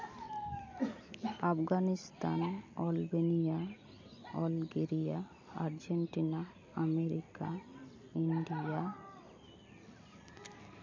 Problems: background sounds at intervals